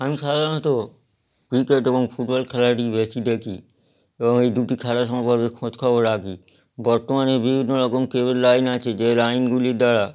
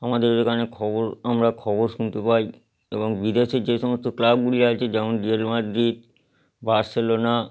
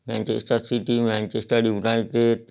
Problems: none marked